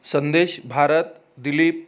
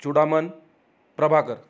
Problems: none marked